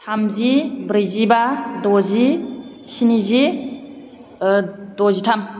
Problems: constant background noise